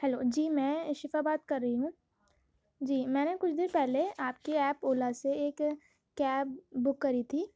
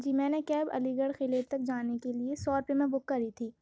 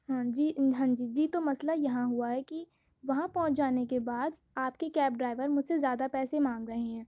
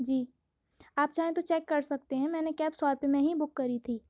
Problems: low volume